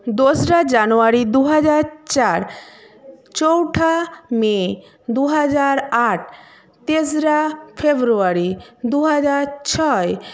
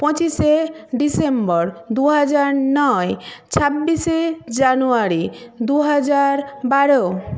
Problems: background conversations at intervals